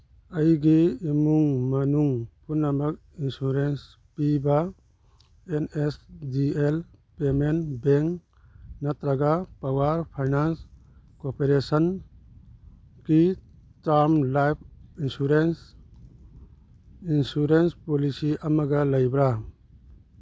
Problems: none marked